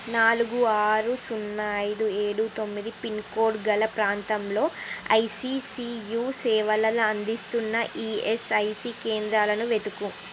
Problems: constant background noise